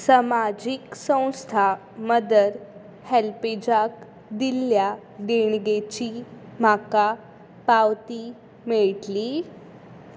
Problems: background sounds at intervals